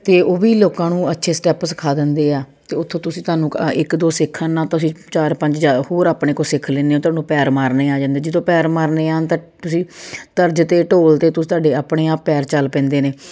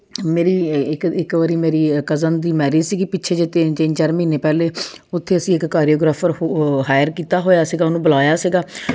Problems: none marked